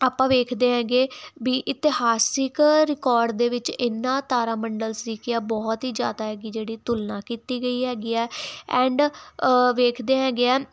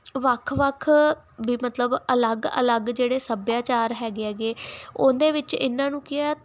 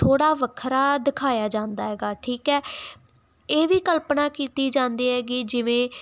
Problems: constant background noise